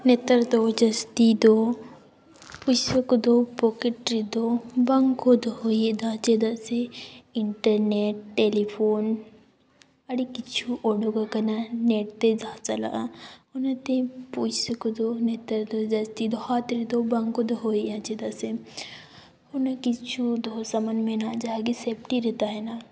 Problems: background sounds at intervals